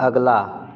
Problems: none marked